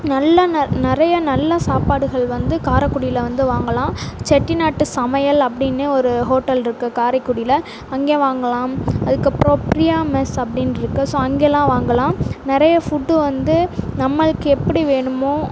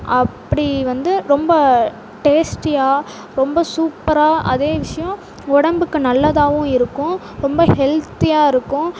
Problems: constant background noise